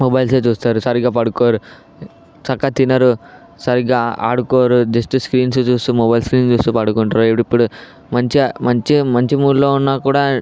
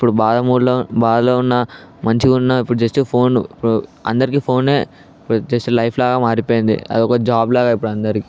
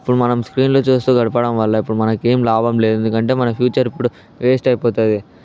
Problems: background sounds at intervals, background conversations at intervals